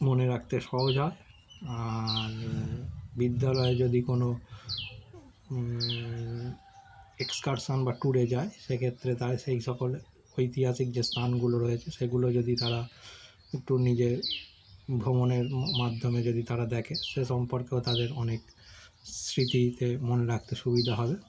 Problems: none marked